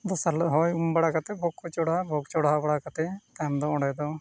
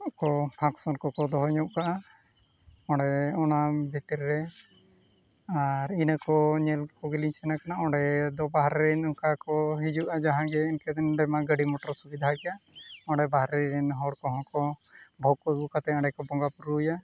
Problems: background sounds at intervals, continuous background conversations